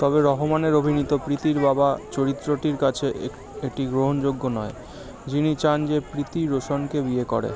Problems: constant background noise, continuous background conversations